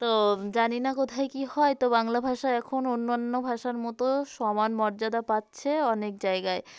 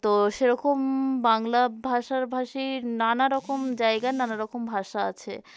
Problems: constant background noise